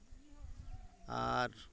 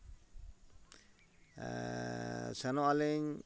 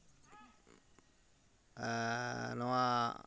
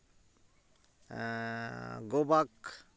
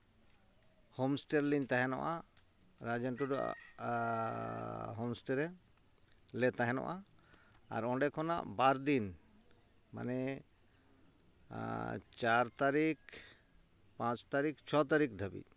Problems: constant background noise